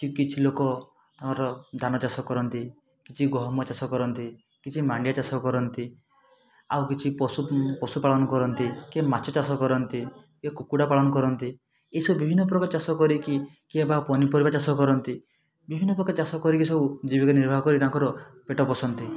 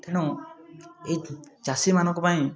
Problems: none marked